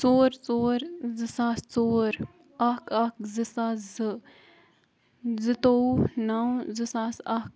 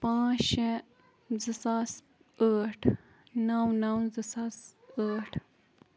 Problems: background sounds at intervals